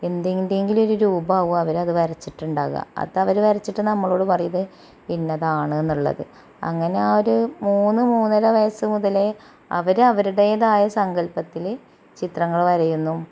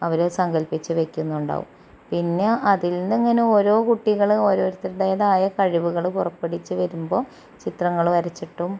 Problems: constant background noise